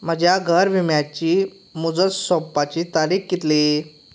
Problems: none marked